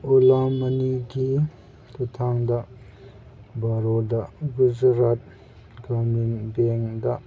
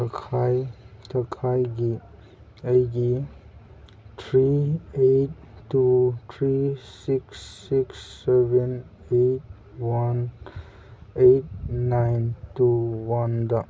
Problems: background sounds at intervals